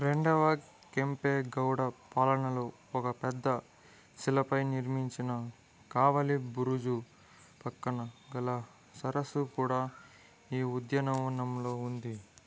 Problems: background conversations at intervals